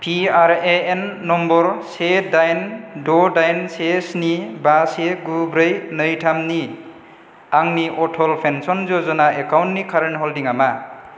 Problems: none marked